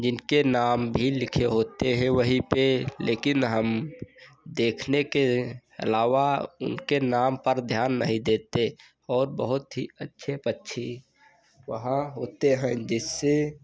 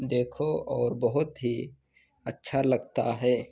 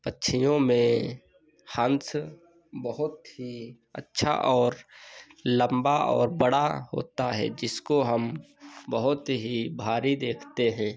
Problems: none marked